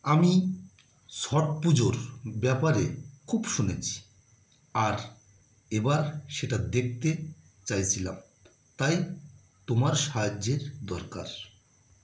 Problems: none marked